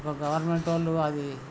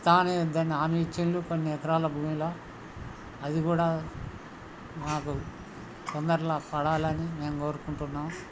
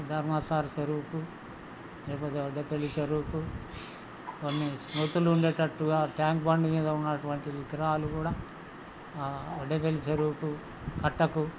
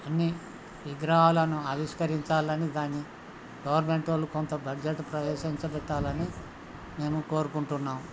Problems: constant background noise, background conversations at intervals